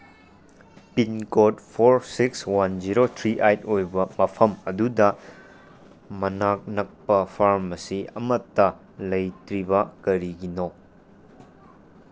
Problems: constant background noise